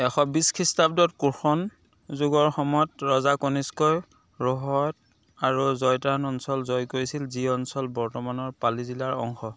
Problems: constant background noise, background conversations at intervals